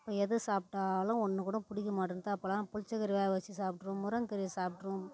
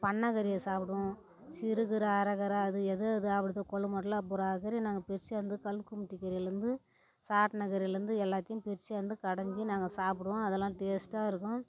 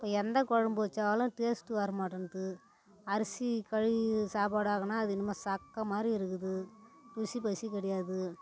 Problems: none marked